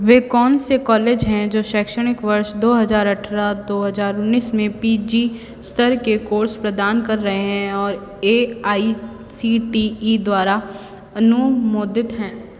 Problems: constant background noise, background conversations at intervals